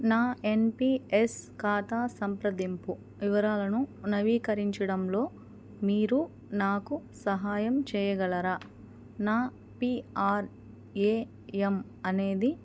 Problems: background sounds at intervals, background conversations at intervals